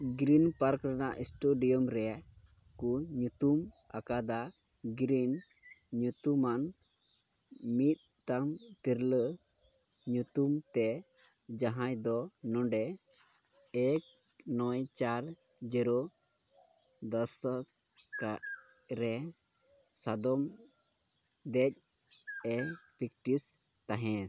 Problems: background sounds at intervals